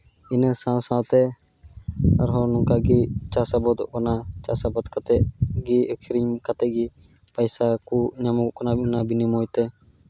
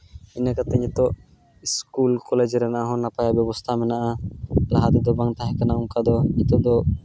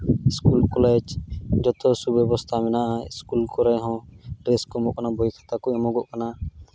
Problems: none marked